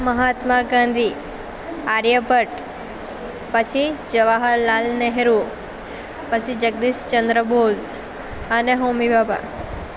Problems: constant background noise